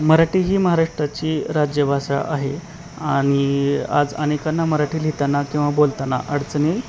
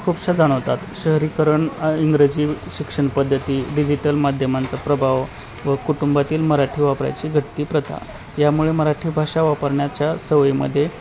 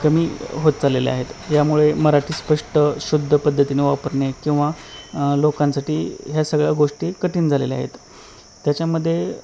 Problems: none marked